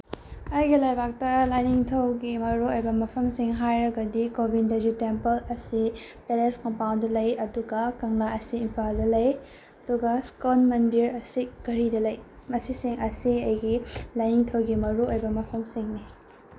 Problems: constant background noise